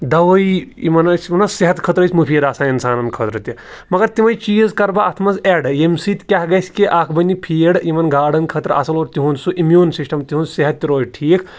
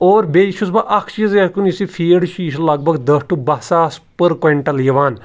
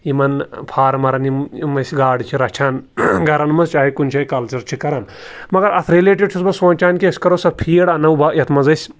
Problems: none marked